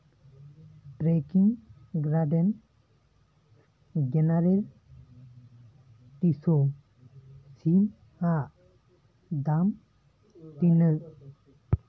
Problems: continuous background conversations